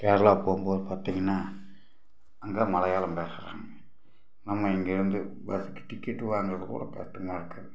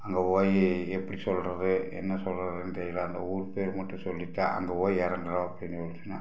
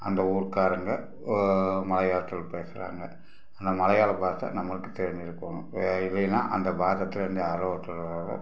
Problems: background sounds at intervals